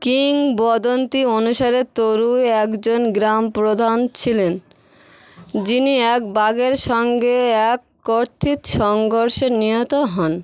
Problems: constant background noise